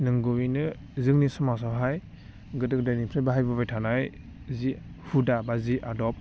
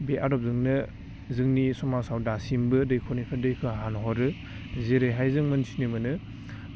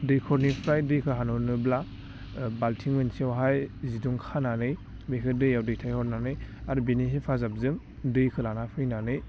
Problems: constant background noise